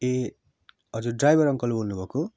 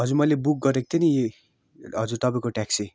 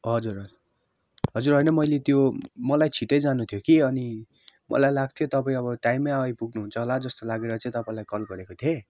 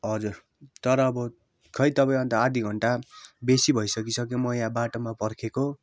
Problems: background sounds at intervals